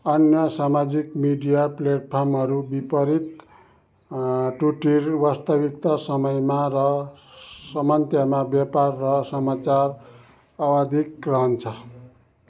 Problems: none marked